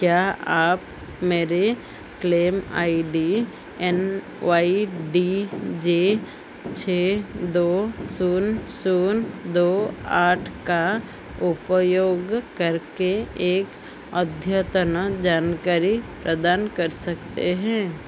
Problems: none marked